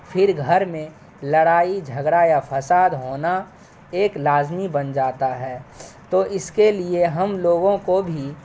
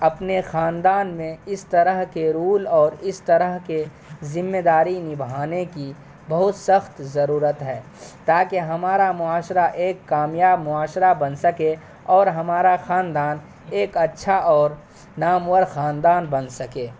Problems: constant background noise